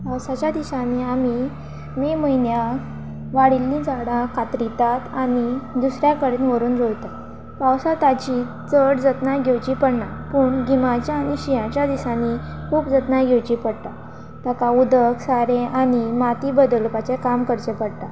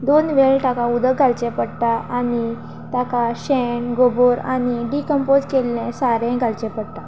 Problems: constant background noise